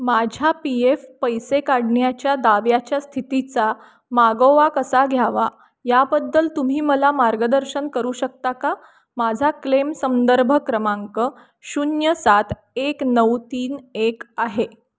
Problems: none marked